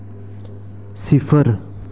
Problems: constant background noise